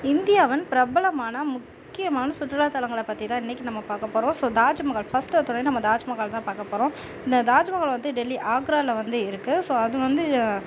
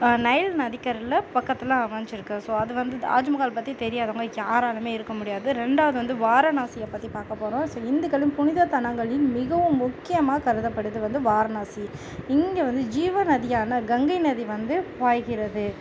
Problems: none marked